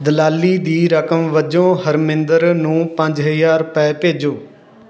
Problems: background sounds at intervals